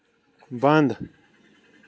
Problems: none marked